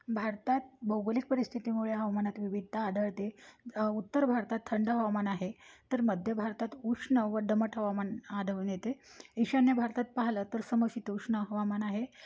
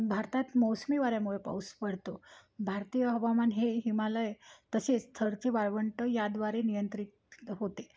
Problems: background sounds at intervals